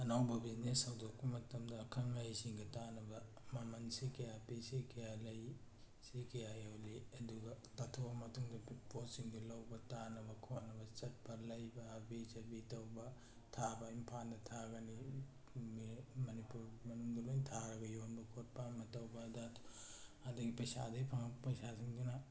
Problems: none marked